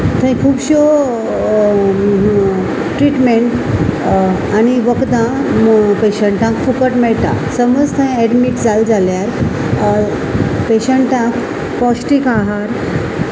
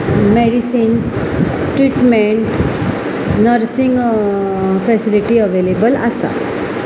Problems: constant background noise